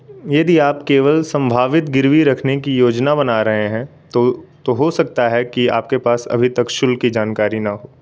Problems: constant background noise